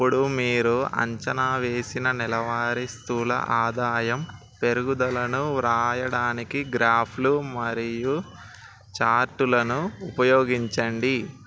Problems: none marked